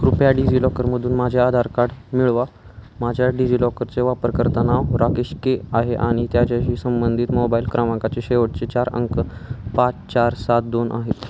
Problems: constant background noise